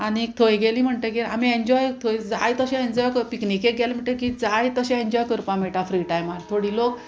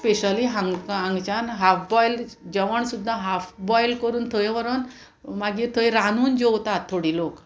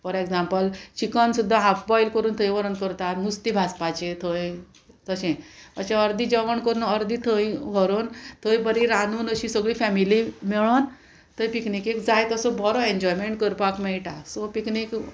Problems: constant background noise